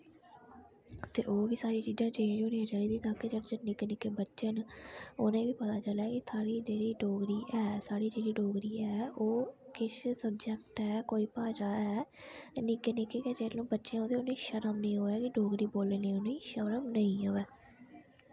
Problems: none marked